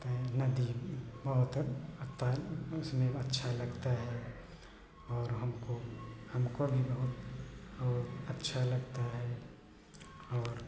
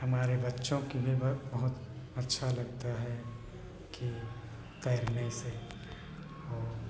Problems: none marked